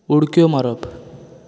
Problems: background sounds at intervals